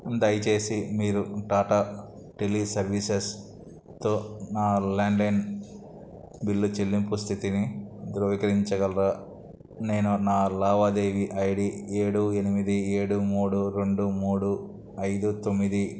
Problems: none marked